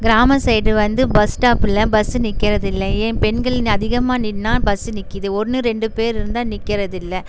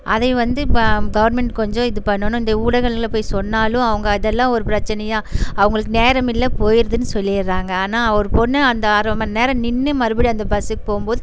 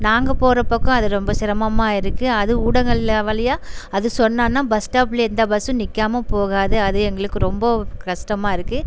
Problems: background sounds at intervals